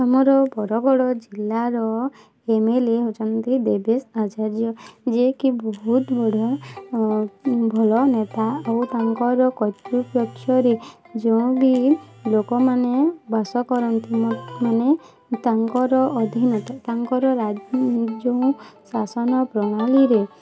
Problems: constant background noise